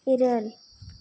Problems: none marked